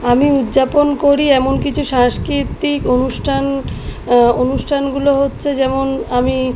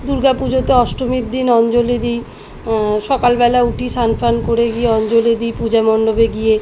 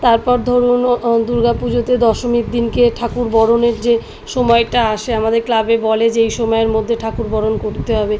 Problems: background sounds at intervals